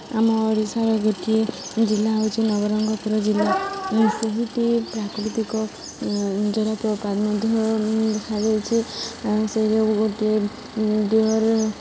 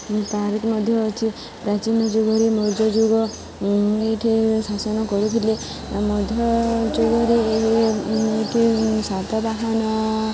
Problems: none marked